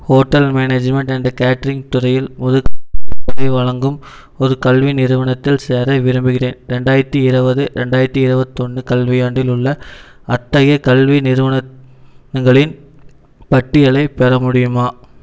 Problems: background sounds at intervals